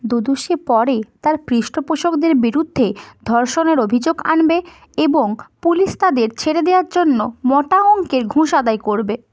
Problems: none marked